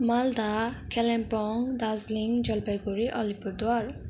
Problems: constant background noise